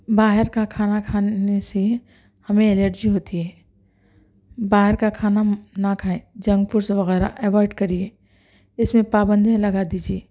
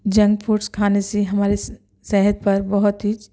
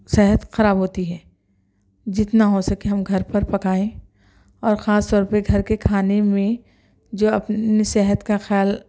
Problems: none marked